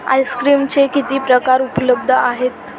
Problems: constant background noise, background conversations at intervals